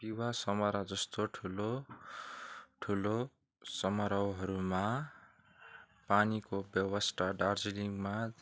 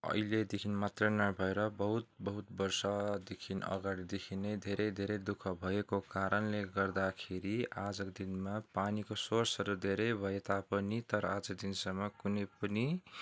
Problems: background sounds at intervals